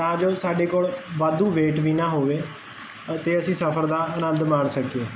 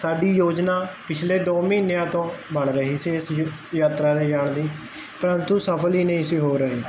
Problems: constant background noise